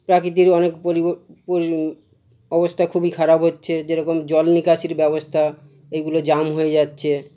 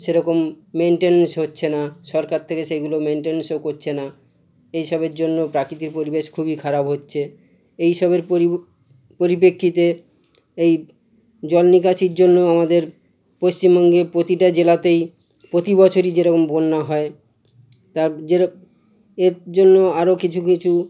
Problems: constant background noise